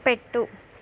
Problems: constant background noise